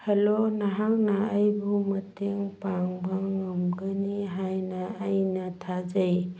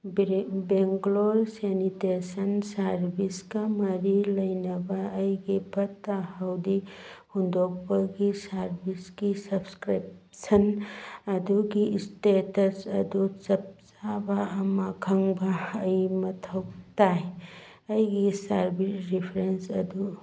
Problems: none marked